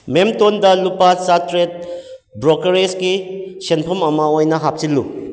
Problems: echo